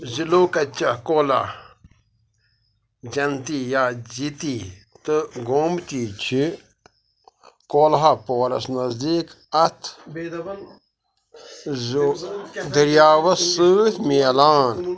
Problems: constant background noise, background conversations at intervals